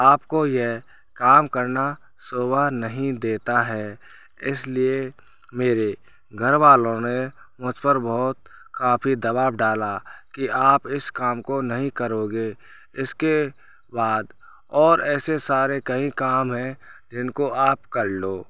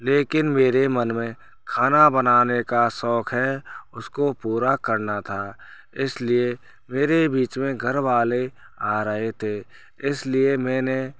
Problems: constant background noise